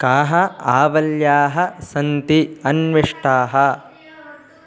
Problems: continuous background conversations